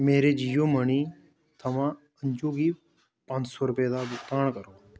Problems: background sounds at intervals